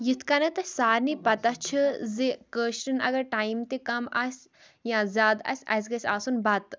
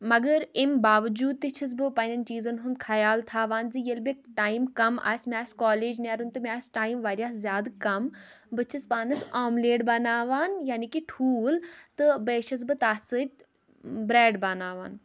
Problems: none marked